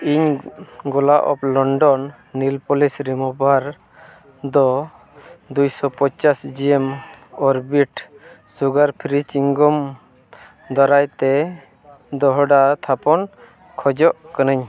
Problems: none marked